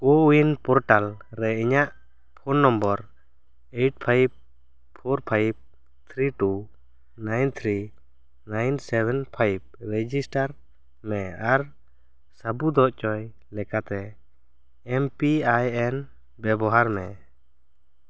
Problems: none marked